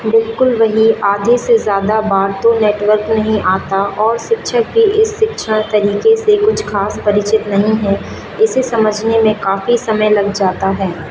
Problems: none marked